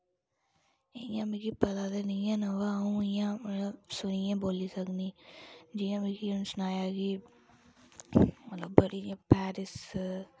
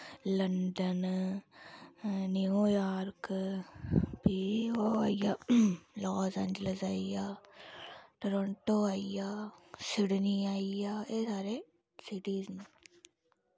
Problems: constant background noise, low volume